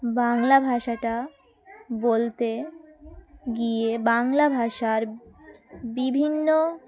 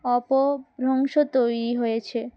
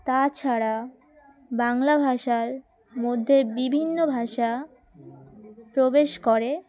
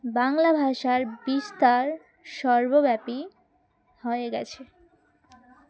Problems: background sounds at intervals, continuous background conversations